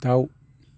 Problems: none marked